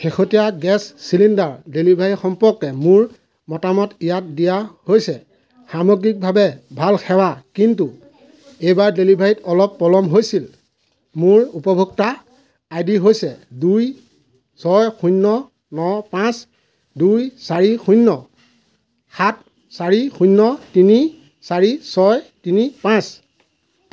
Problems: constant background noise